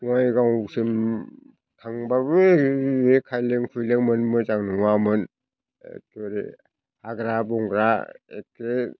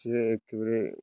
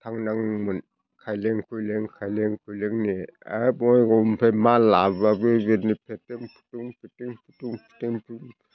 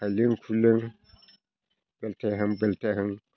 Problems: constant background noise